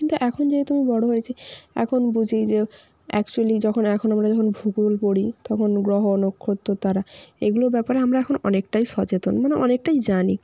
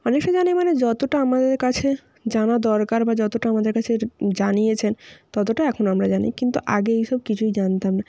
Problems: constant background noise